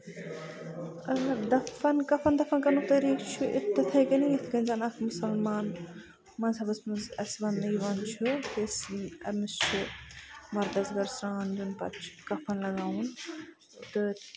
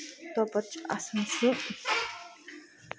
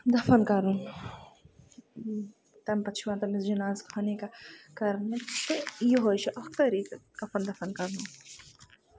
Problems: constant background noise, low volume